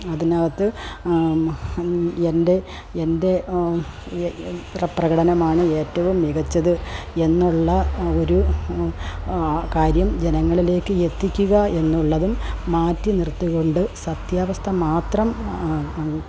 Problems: background sounds at intervals, low volume